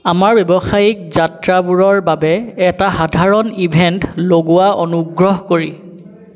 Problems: background sounds at intervals